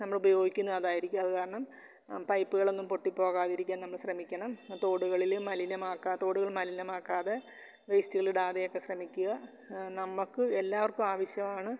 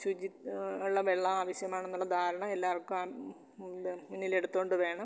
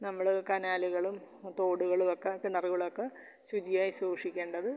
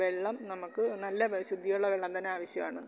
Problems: none marked